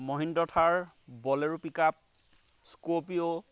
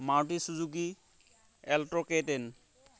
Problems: constant background noise